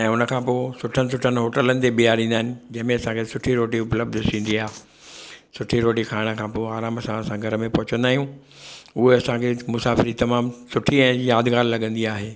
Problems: none marked